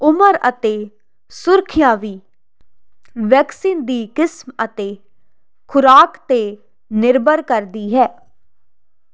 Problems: constant background noise